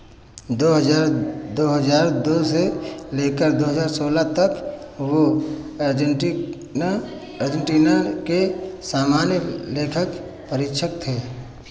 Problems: none marked